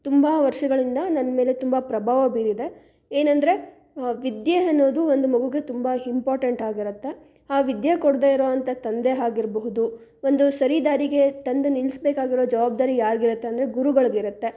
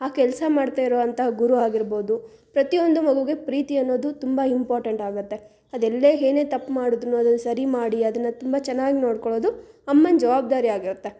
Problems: none marked